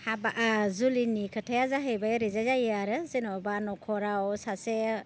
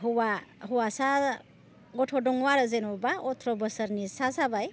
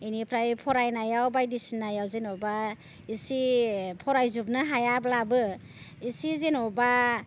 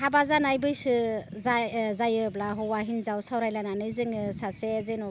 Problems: constant background noise